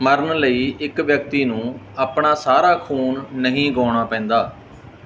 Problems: background sounds at intervals